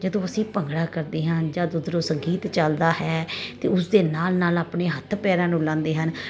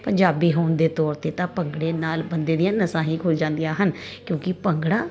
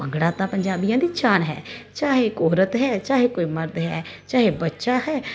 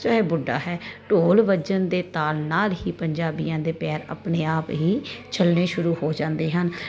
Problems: constant background noise